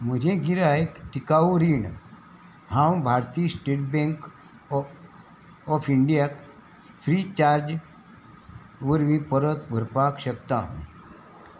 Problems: constant background noise